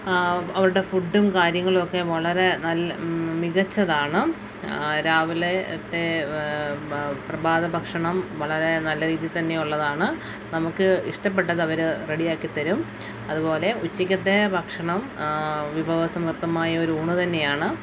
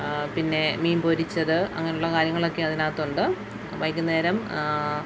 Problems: constant background noise